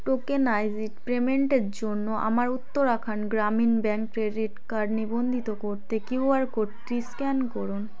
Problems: continuous background conversations